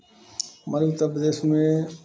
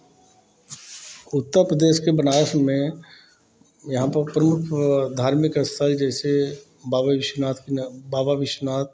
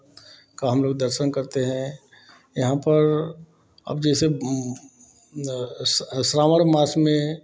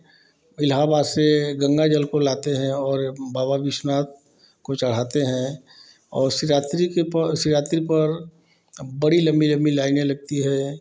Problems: none marked